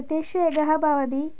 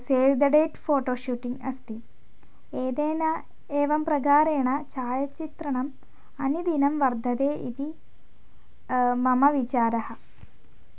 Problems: none marked